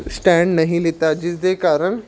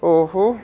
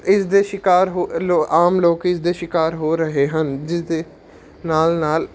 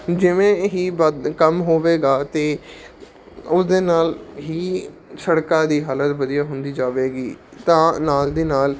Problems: constant background noise